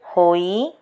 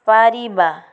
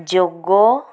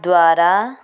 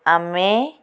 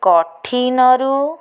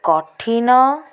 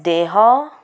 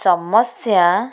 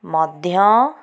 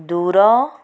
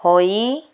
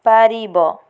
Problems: constant background noise